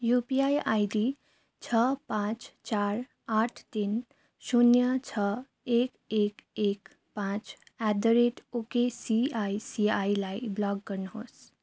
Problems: none marked